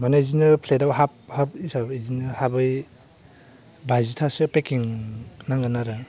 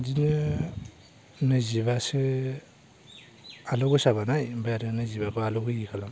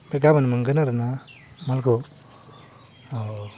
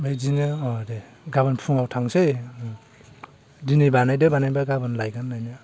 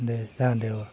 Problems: constant background noise